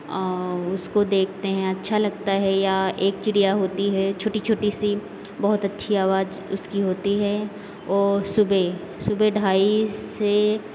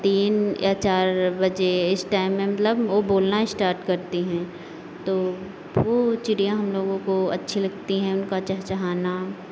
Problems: constant background noise